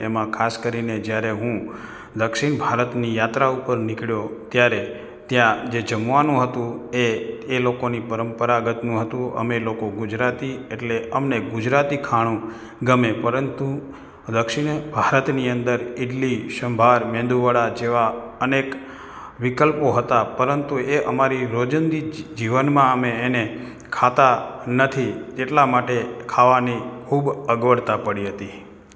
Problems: none marked